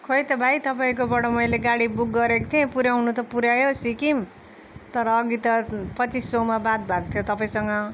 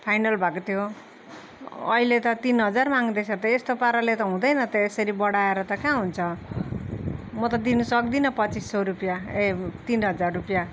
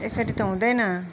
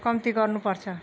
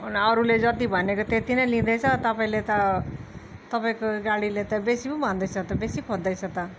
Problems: none marked